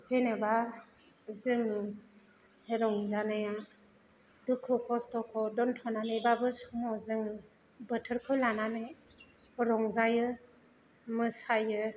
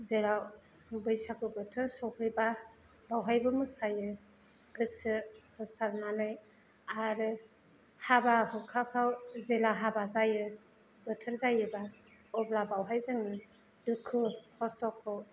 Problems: none marked